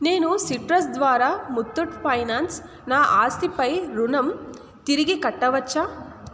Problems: constant background noise